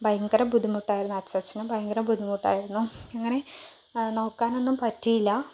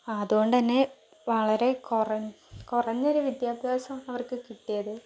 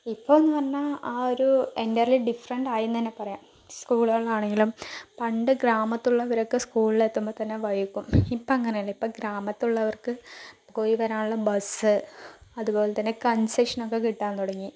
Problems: low volume